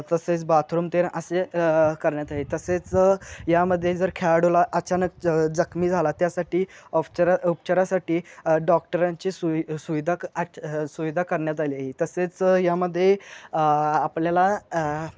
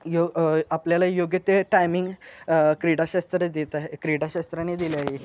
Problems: none marked